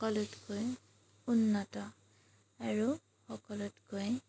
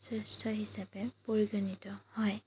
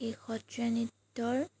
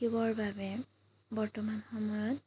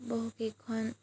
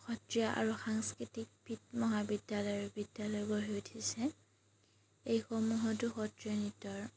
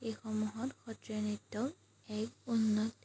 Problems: background sounds at intervals